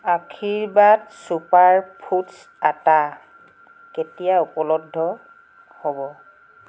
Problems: constant background noise